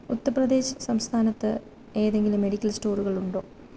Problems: constant background noise